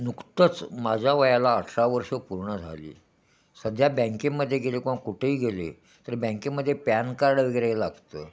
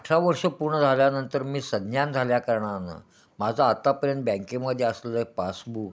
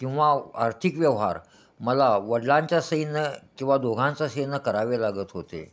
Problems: none marked